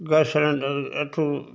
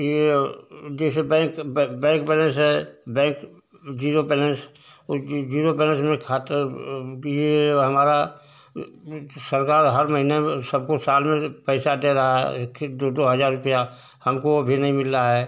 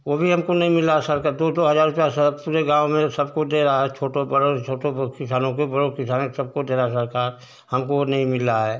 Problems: constant background noise